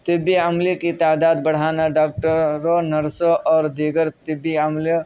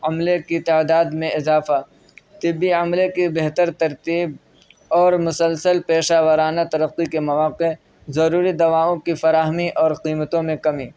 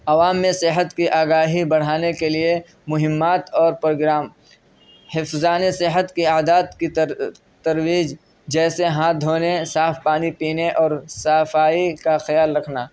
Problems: background sounds at intervals